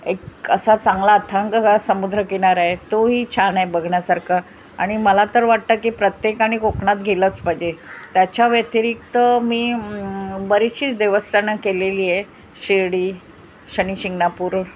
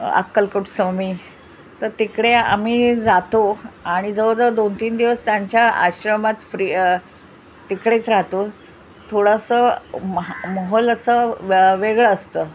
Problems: constant background noise